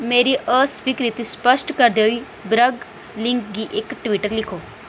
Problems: echo